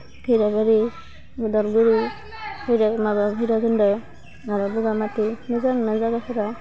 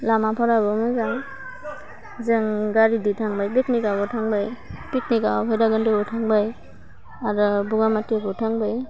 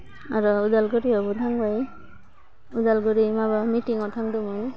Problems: low volume